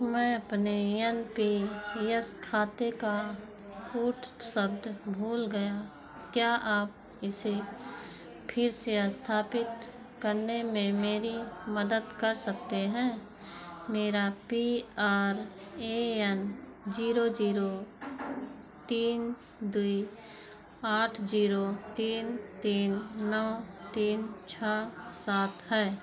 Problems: background sounds at intervals, background conversations at intervals